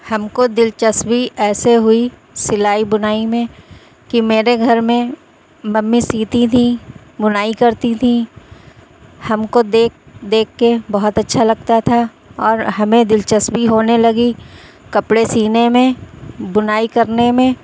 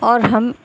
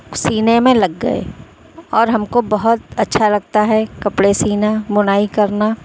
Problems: constant background noise